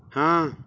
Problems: background sounds at intervals